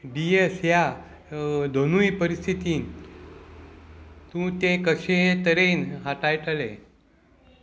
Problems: none marked